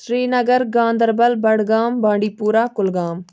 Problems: background sounds at intervals